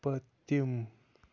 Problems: constant background noise